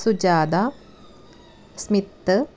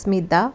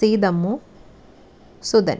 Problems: background sounds at intervals